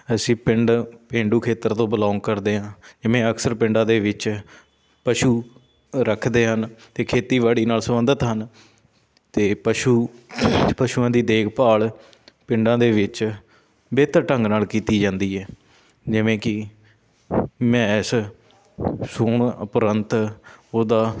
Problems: constant background noise, background conversations at intervals